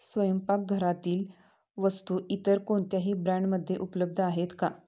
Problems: background sounds at intervals